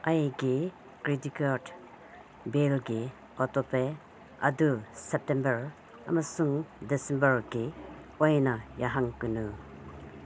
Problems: constant background noise